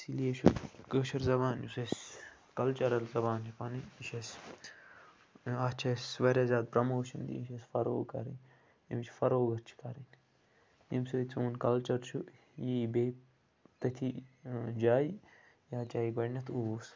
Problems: constant background noise